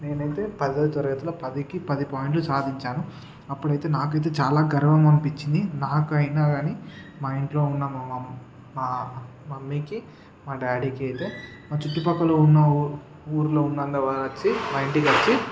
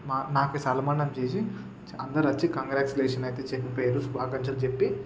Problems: none marked